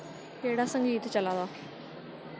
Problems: constant background noise